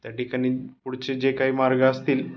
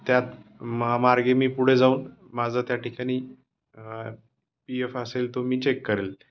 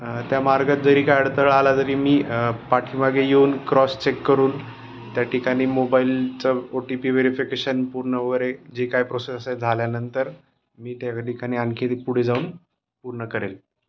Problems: constant background noise